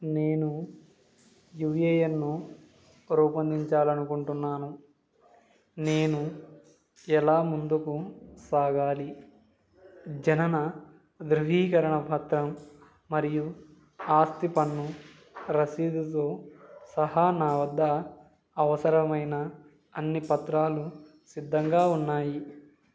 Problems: none marked